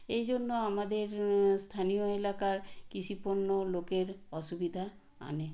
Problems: none marked